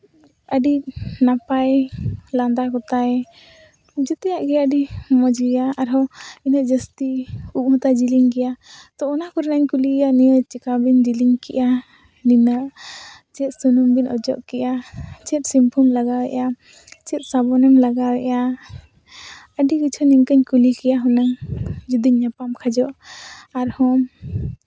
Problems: none marked